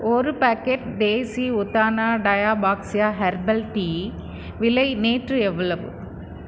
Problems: none marked